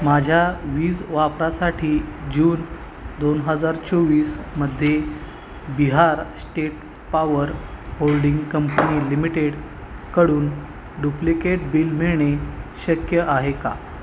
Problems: constant background noise